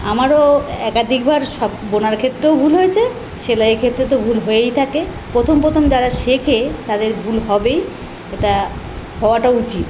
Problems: constant background noise